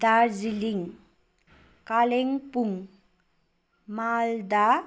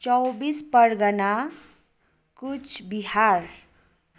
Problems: none marked